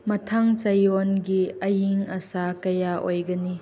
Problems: background sounds at intervals